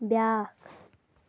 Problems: constant background noise